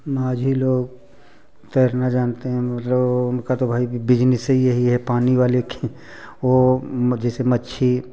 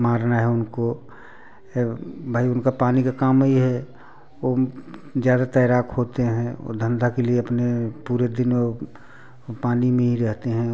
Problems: constant background noise, background conversations at intervals